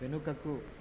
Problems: none marked